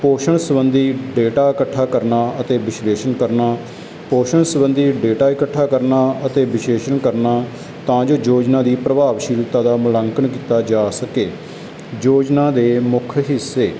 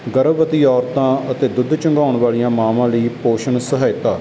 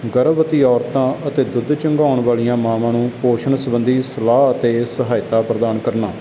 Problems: background sounds at intervals